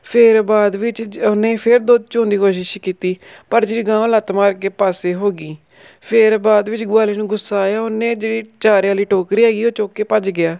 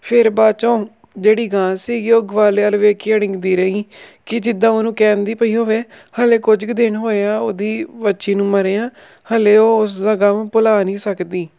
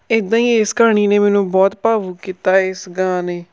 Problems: background sounds at intervals